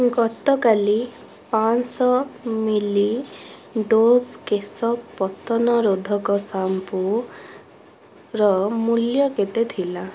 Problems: background sounds at intervals